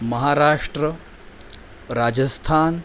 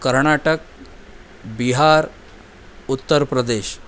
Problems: constant background noise